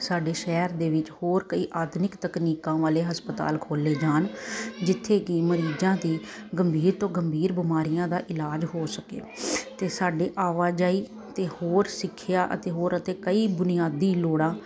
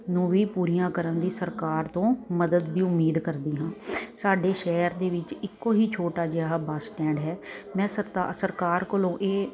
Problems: constant background noise